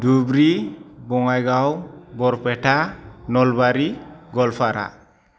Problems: none marked